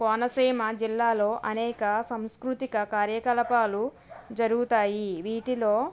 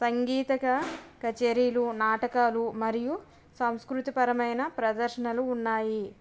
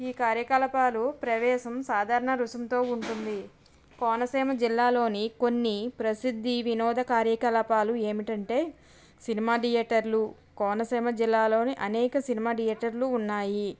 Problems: background sounds at intervals